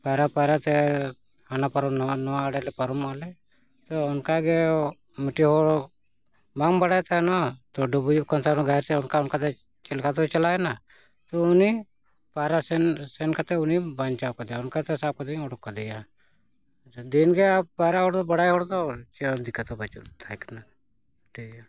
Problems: none marked